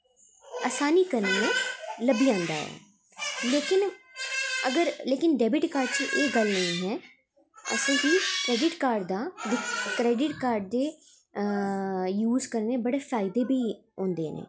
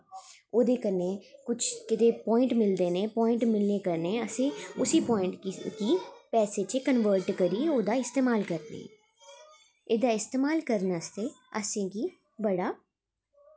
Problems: background sounds at intervals